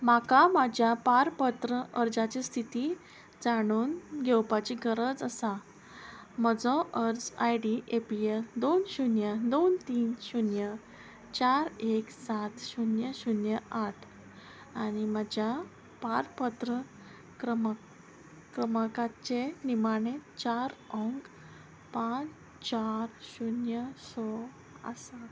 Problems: none marked